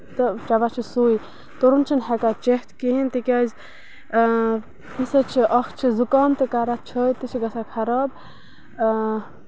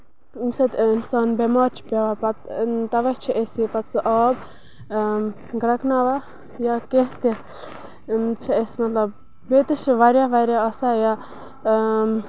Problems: constant background noise